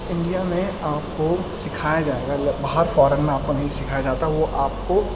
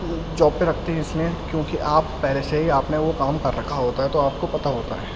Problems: constant background noise, low volume